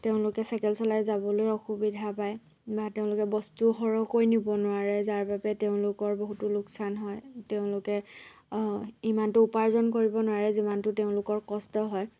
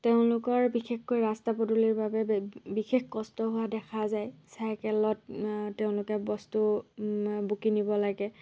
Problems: none marked